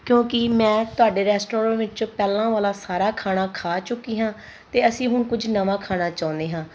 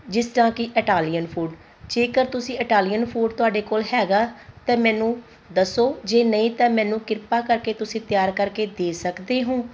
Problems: constant background noise